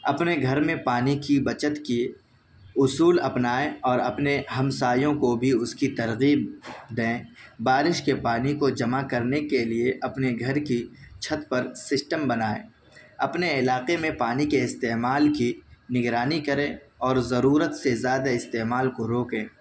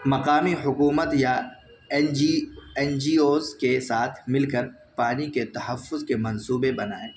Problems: background sounds at intervals